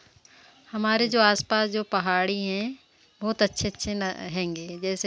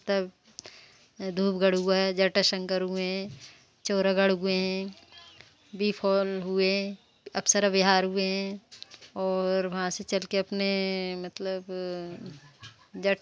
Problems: none marked